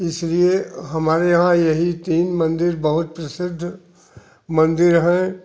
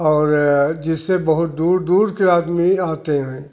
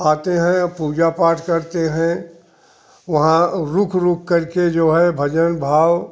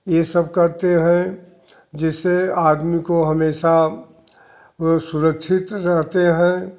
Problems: none marked